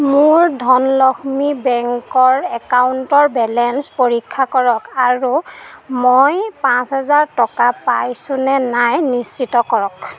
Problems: none marked